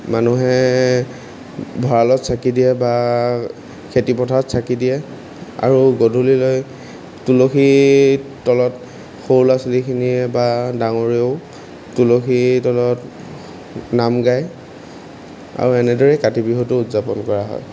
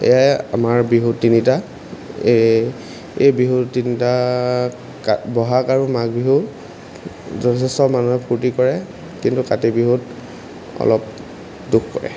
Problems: constant background noise